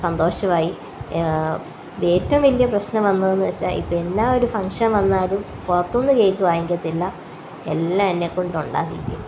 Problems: constant background noise